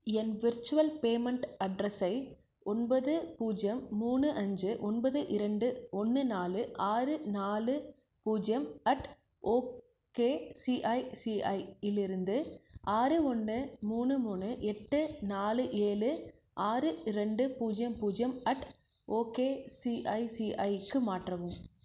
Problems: low volume